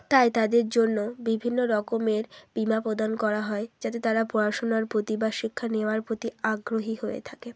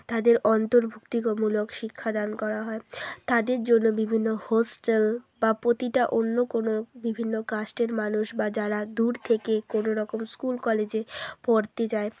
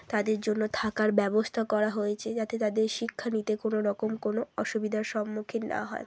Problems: none marked